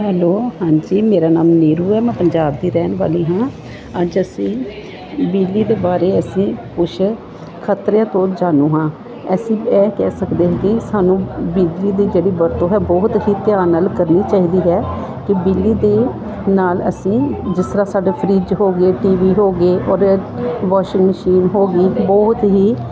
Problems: constant background noise, continuous background conversations